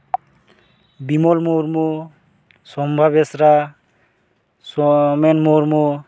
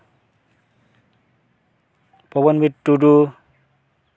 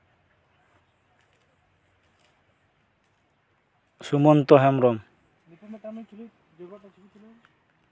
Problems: background sounds at intervals, background conversations at intervals